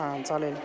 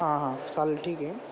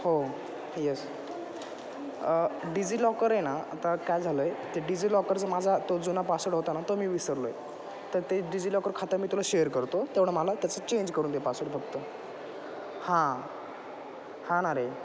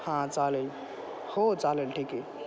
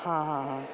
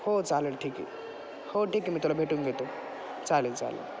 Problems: constant background noise, background conversations at intervals, echo